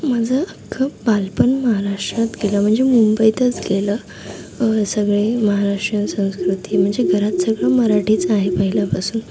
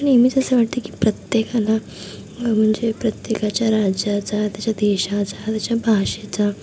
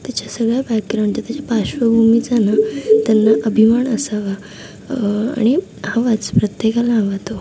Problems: constant background noise